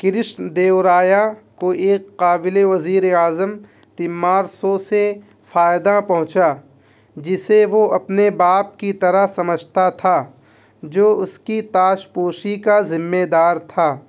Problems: constant background noise